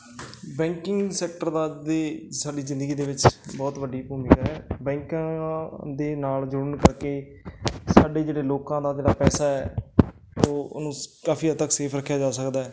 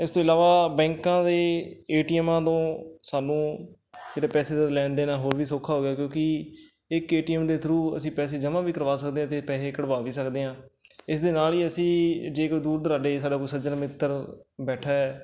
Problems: background sounds at intervals